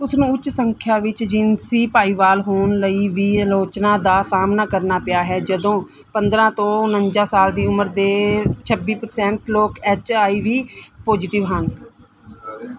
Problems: background conversations at intervals